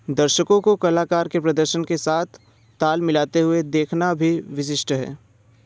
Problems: constant background noise